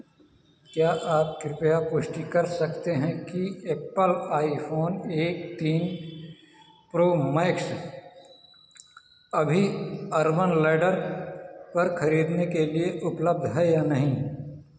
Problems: constant background noise